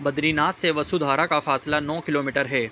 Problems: none marked